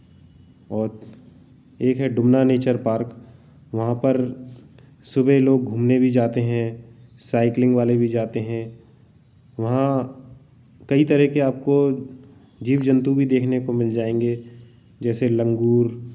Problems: background sounds at intervals